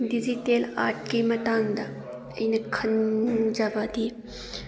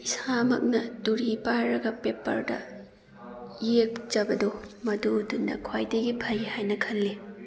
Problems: background conversations at intervals